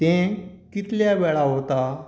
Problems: none marked